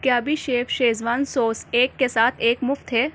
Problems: constant background noise